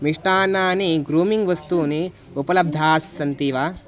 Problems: none marked